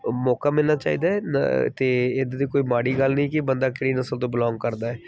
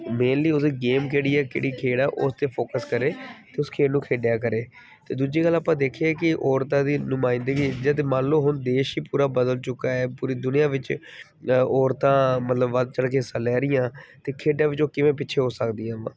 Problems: background sounds at intervals